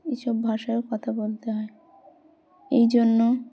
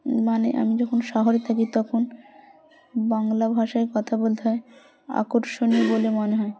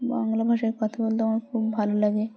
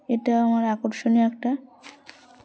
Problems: constant background noise